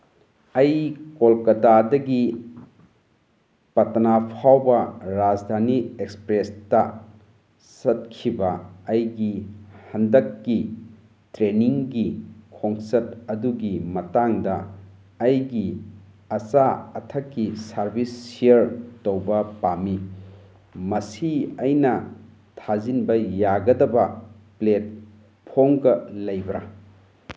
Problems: background sounds at intervals